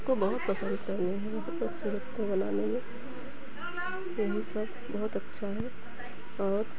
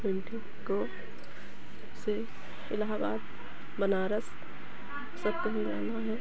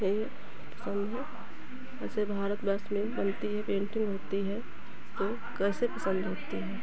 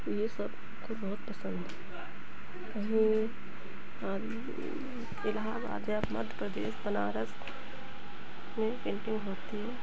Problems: none marked